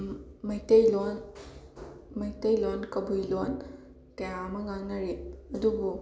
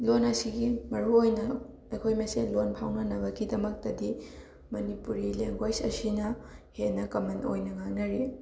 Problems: constant background noise